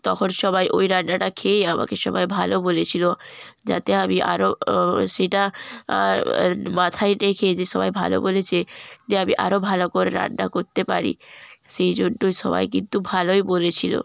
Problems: background sounds at intervals